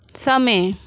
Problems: background sounds at intervals